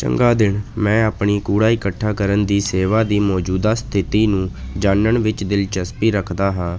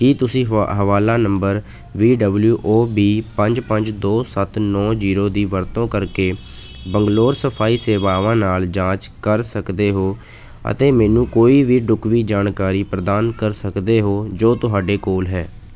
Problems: background sounds at intervals